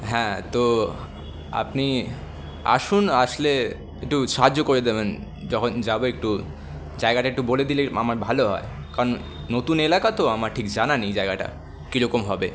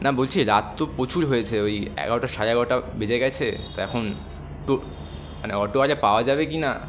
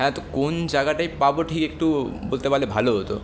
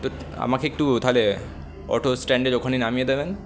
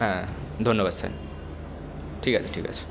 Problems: none marked